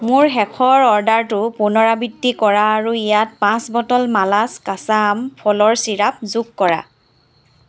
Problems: none marked